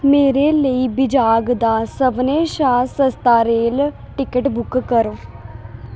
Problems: constant background noise